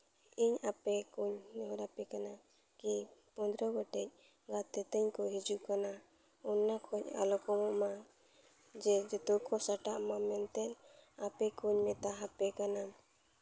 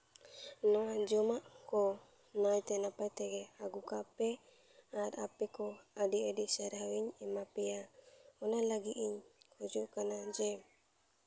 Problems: none marked